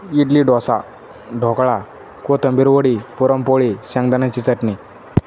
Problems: constant background noise